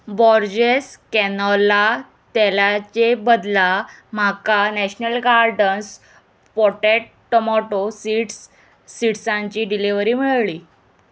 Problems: none marked